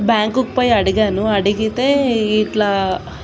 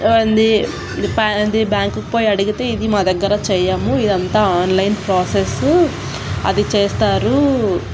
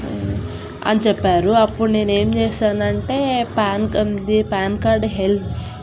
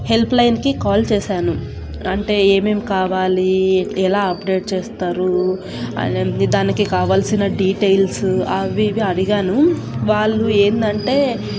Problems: constant background noise